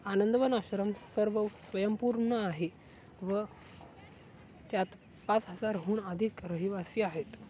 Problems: none marked